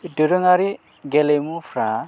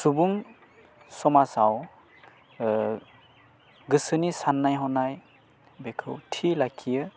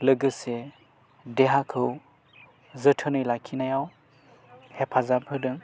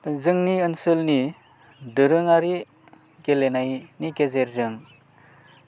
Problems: low volume